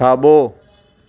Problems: constant background noise